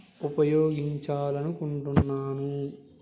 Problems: background sounds at intervals